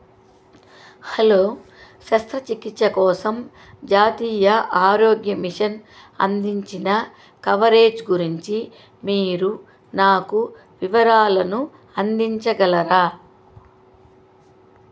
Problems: constant background noise